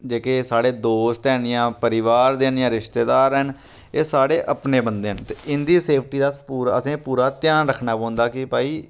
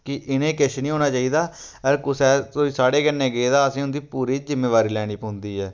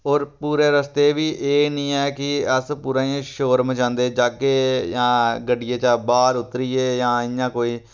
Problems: none marked